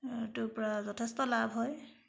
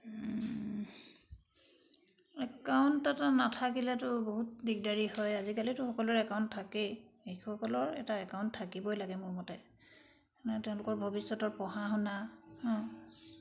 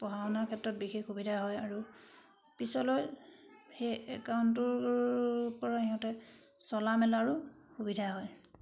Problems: background sounds at intervals